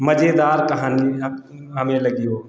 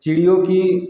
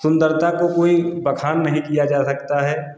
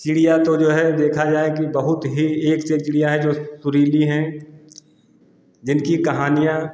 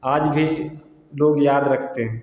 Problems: constant background noise